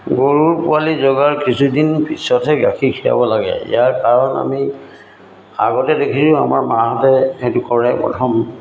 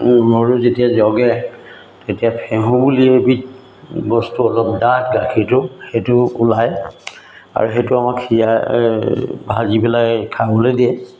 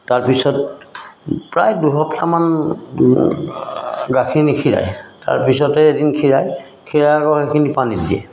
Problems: none marked